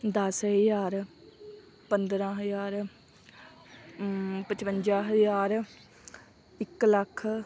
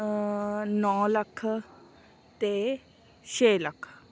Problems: continuous background conversations